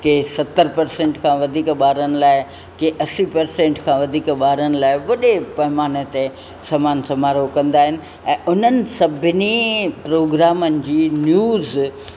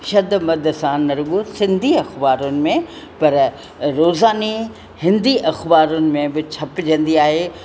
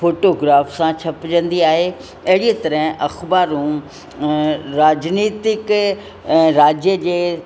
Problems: constant background noise